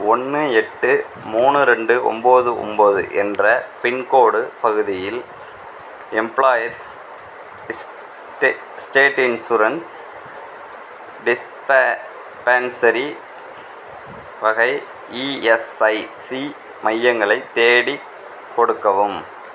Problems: none marked